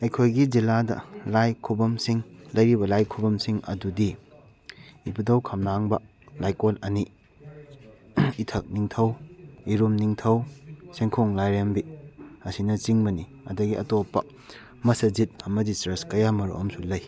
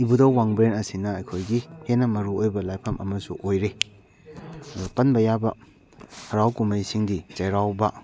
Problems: background conversations at intervals